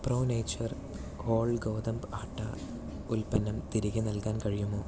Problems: low volume